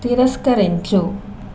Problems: none marked